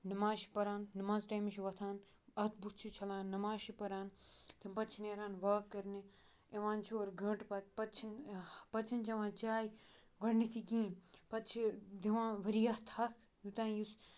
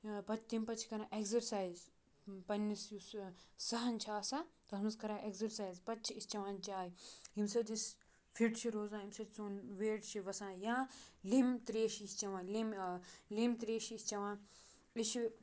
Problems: background sounds at intervals